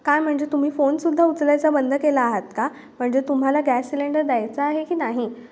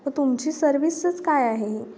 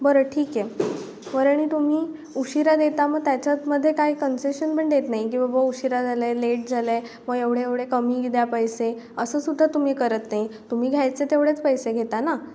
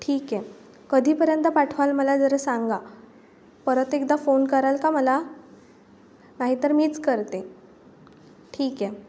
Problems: background sounds at intervals